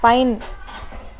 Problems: constant background noise